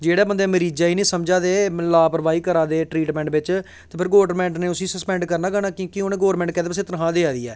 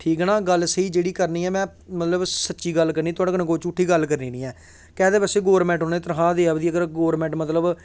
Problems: none marked